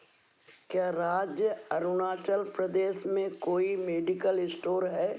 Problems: none marked